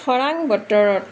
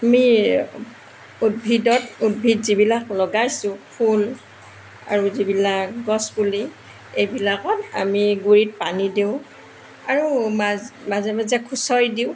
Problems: constant background noise